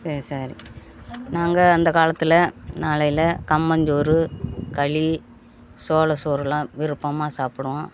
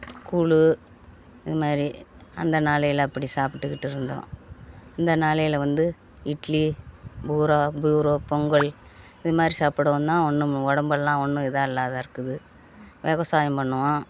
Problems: background conversations at intervals